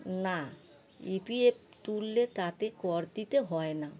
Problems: constant background noise